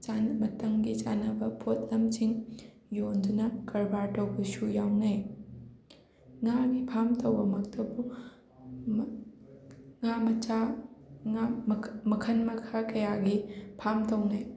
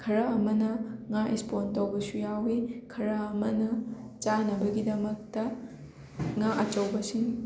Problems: constant background noise, background conversations at intervals